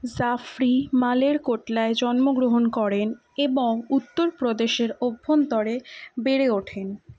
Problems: none marked